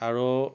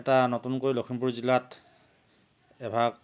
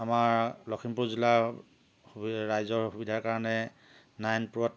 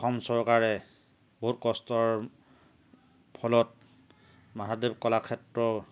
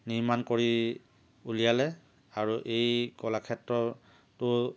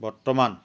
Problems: none marked